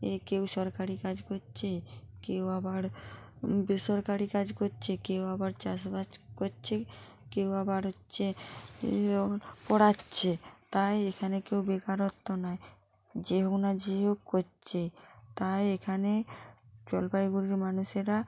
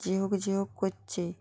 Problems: constant background noise